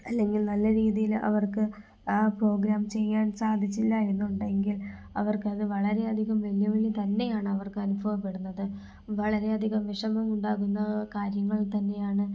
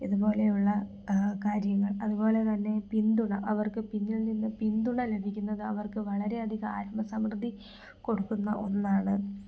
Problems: low volume